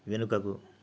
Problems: none marked